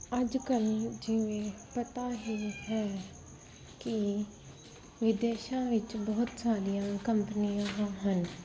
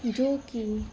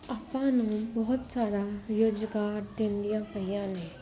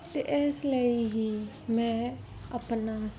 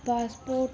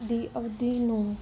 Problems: background sounds at intervals